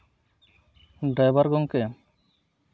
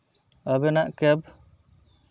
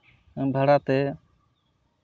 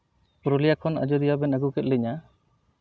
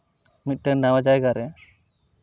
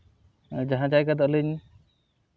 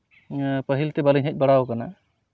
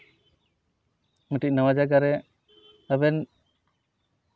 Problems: none marked